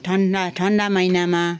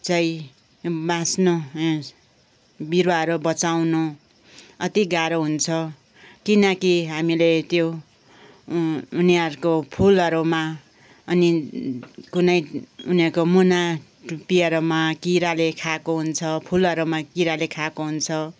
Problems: background sounds at intervals